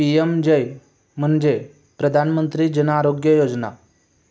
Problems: none marked